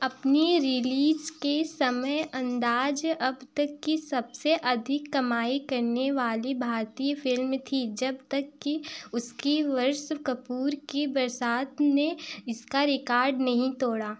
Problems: background sounds at intervals